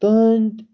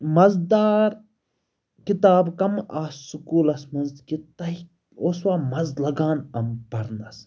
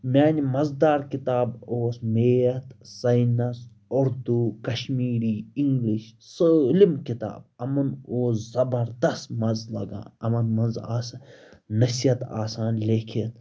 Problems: background sounds at intervals